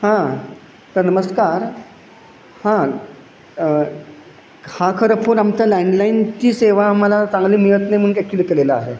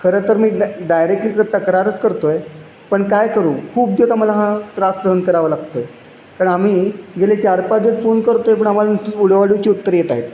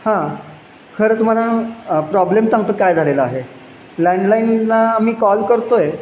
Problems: none marked